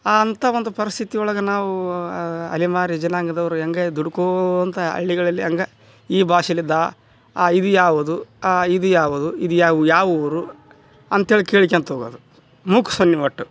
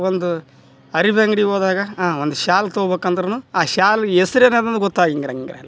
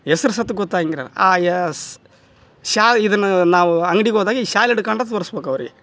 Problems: none marked